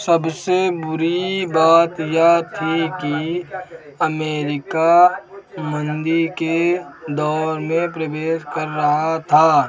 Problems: none marked